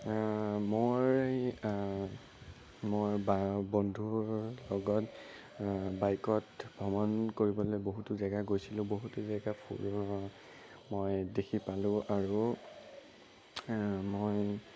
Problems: constant background noise, low volume